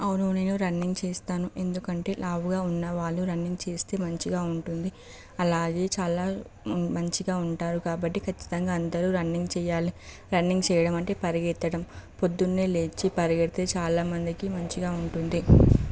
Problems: background sounds at intervals